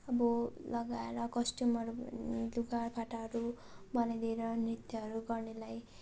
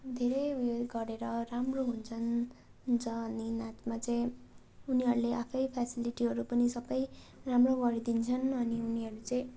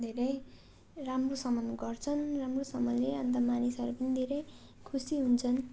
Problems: constant background noise